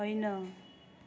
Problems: continuous background conversations